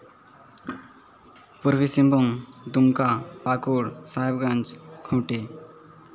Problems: constant background noise